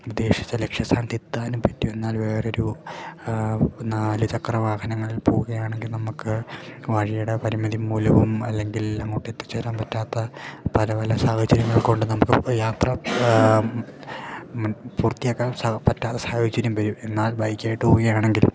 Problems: none marked